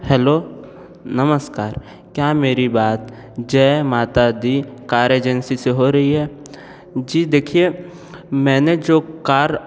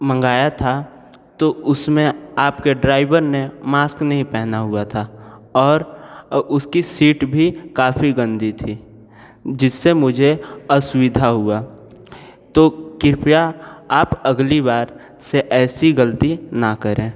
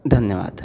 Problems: none marked